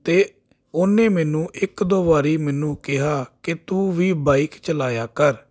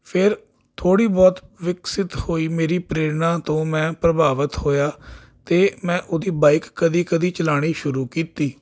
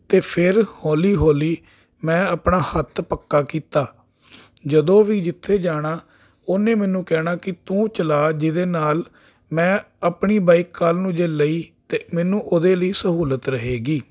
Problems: none marked